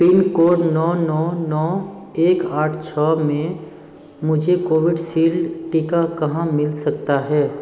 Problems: none marked